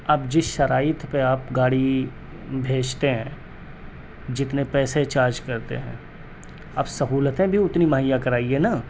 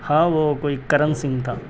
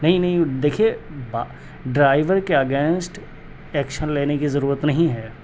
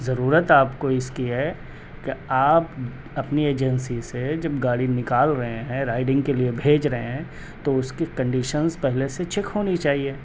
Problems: constant background noise